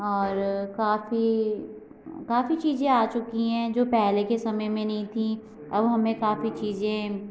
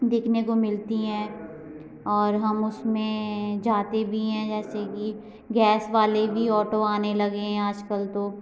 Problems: none marked